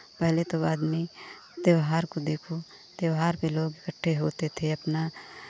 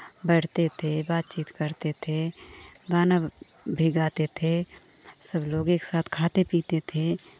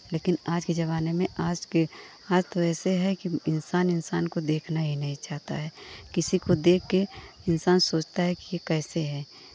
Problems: constant background noise